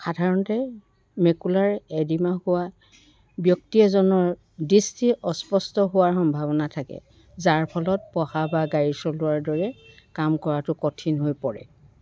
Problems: background sounds at intervals